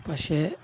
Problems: none marked